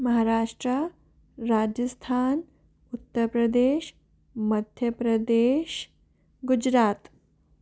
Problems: none marked